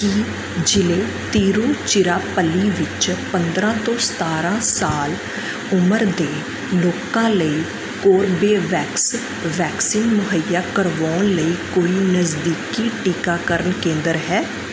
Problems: constant background noise